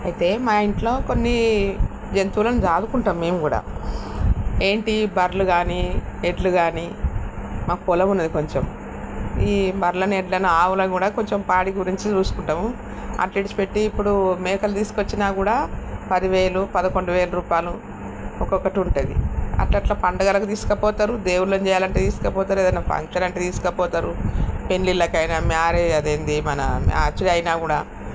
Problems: constant background noise